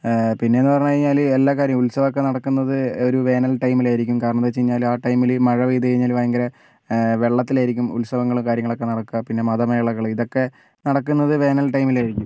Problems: none marked